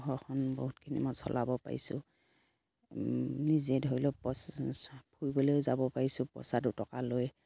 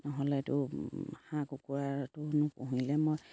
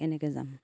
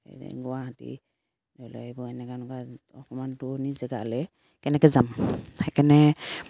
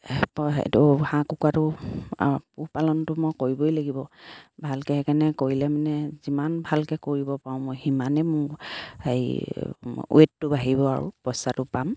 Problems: background sounds at intervals